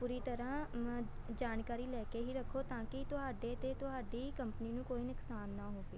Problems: none marked